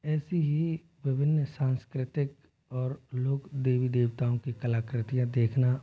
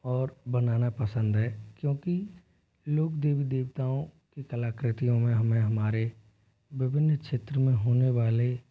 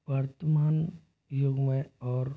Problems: constant background noise, low volume